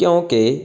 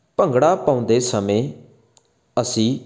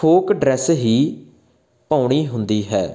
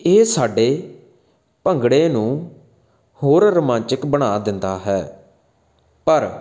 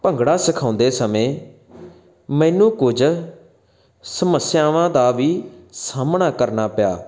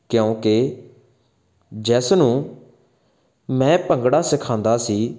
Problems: background sounds at intervals